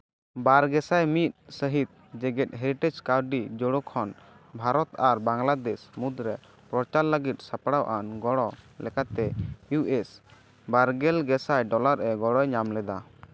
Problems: none marked